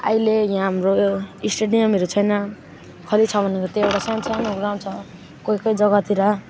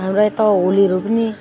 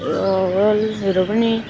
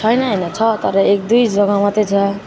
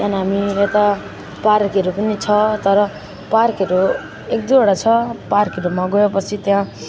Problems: none marked